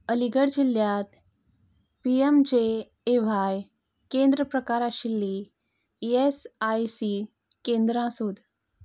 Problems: none marked